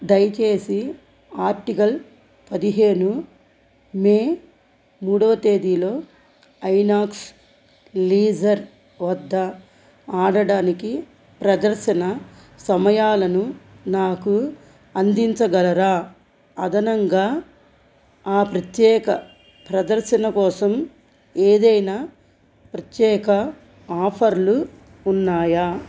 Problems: constant background noise